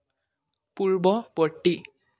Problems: constant background noise